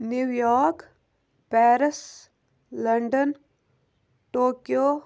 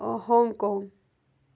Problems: constant background noise